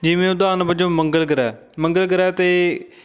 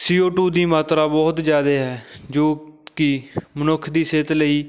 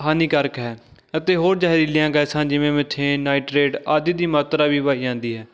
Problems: background sounds at intervals, continuous background conversations